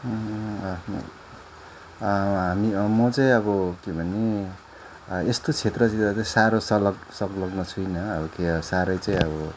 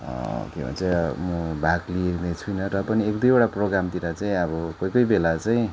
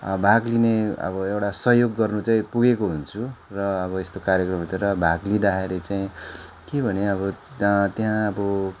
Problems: none marked